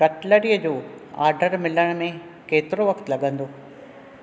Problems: none marked